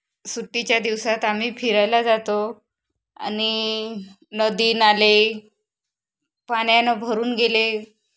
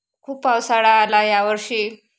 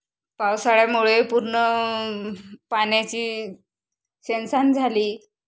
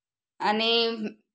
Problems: constant background noise, background conversations at intervals